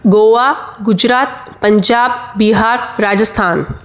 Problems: constant background noise